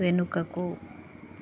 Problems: constant background noise